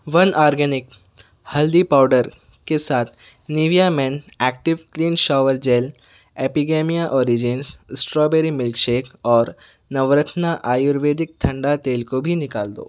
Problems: none marked